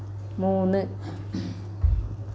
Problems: constant background noise